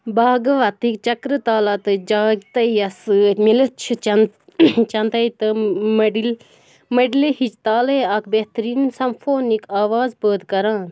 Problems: background sounds at intervals